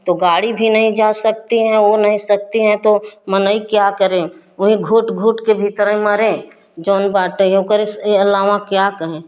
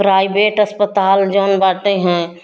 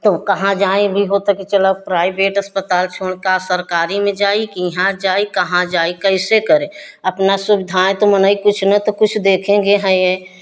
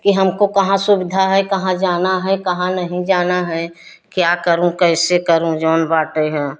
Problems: none marked